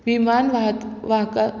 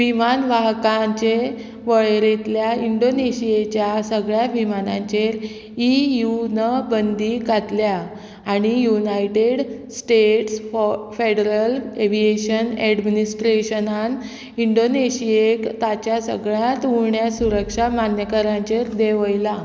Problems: constant background noise